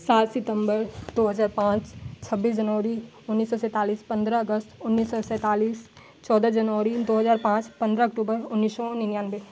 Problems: constant background noise